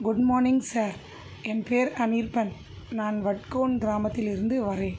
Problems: constant background noise